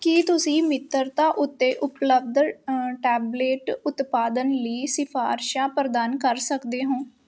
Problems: constant background noise